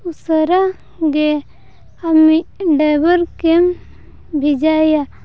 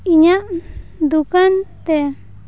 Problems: none marked